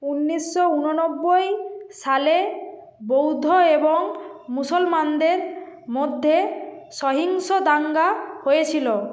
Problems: constant background noise